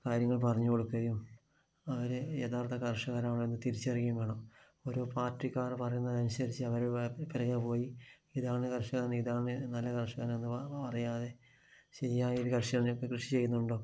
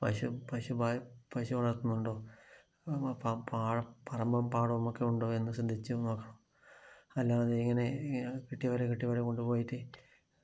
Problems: low volume